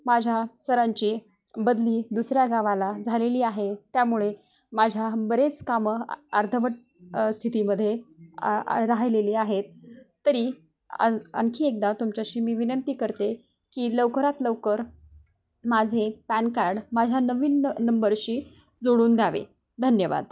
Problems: background sounds at intervals